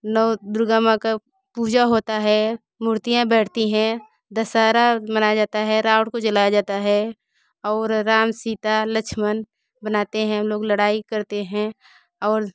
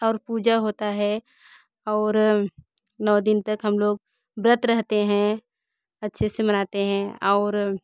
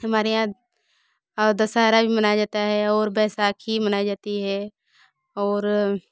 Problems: background sounds at intervals, continuous background conversations